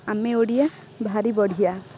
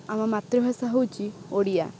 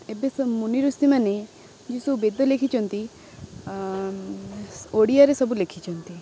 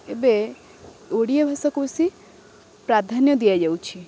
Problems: constant background noise